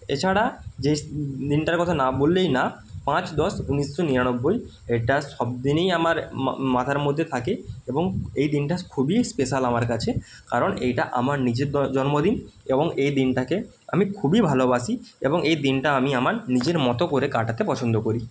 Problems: none marked